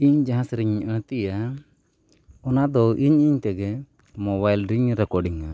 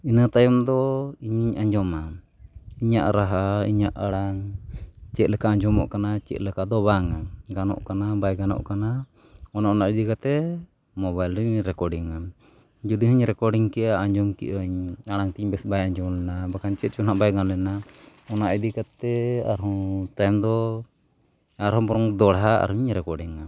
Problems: none marked